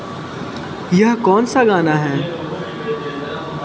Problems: constant background noise, background conversations at intervals, echo